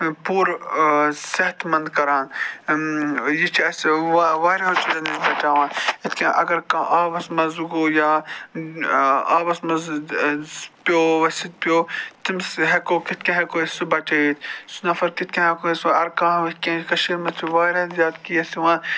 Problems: constant background noise